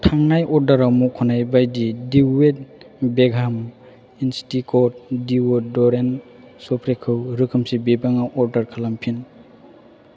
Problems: constant background noise